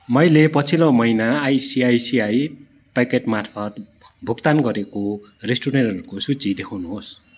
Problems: background sounds at intervals